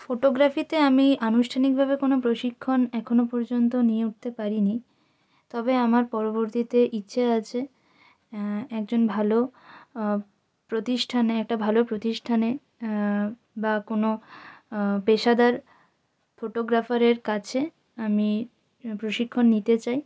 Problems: constant background noise